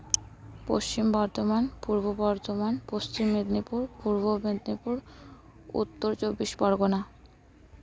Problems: constant background noise, continuous background conversations